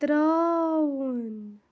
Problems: none marked